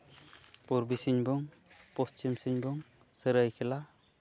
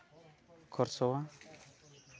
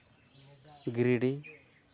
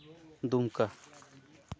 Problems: low volume